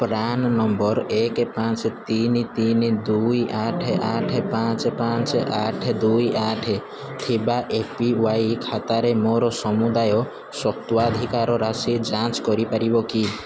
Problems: constant background noise, continuous background conversations